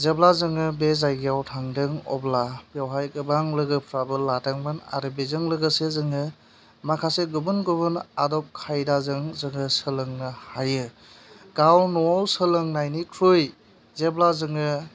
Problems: constant background noise